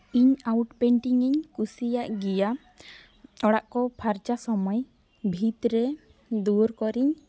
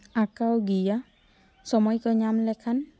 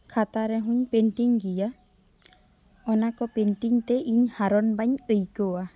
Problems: none marked